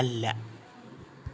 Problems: none marked